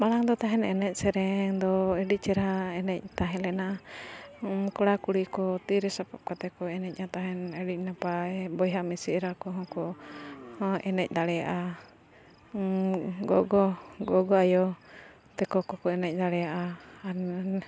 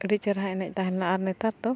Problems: none marked